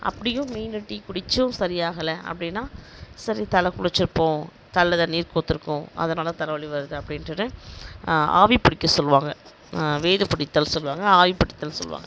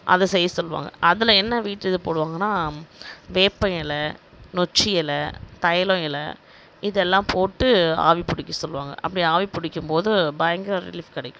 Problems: none marked